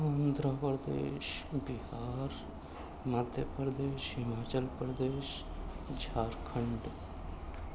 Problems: constant background noise, low volume